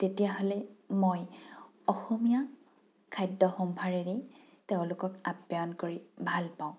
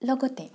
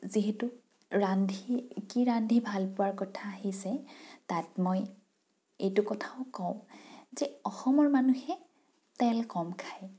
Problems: none marked